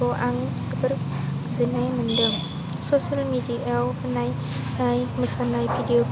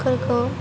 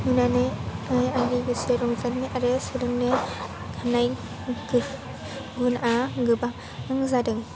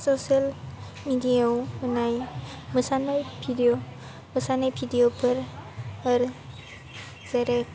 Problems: low volume